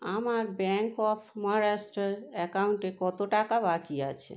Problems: constant background noise